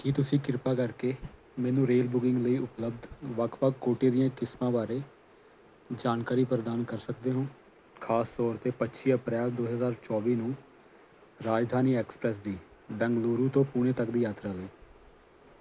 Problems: constant background noise